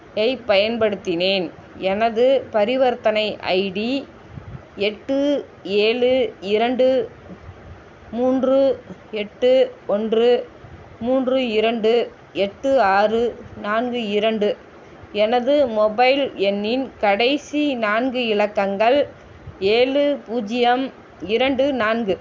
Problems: constant background noise